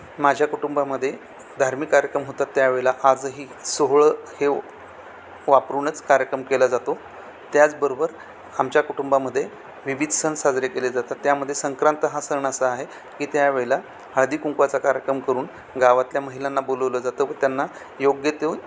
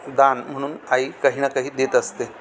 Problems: constant background noise